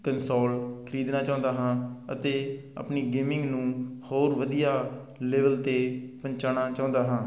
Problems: background sounds at intervals